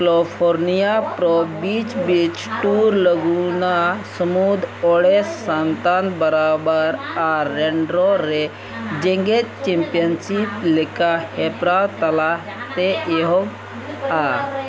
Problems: constant background noise, background conversations at intervals